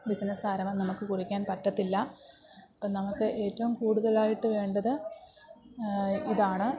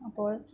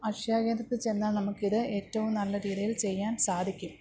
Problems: background sounds at intervals